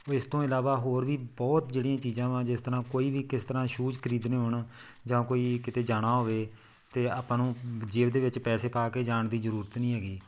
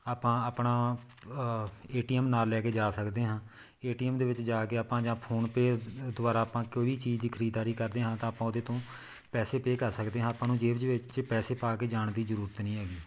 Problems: background sounds at intervals